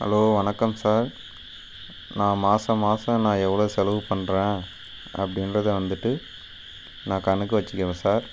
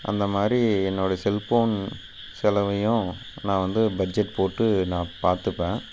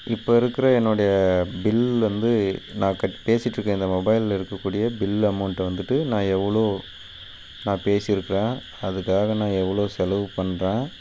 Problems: constant background noise